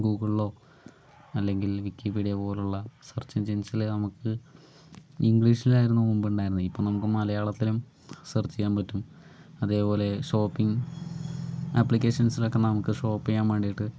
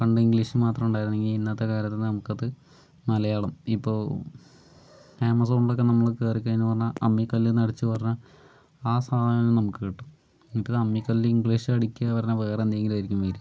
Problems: none marked